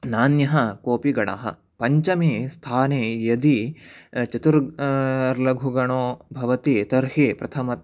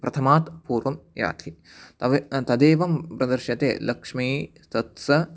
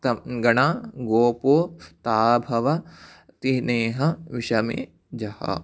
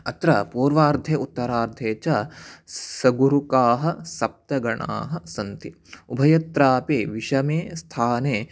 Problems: none marked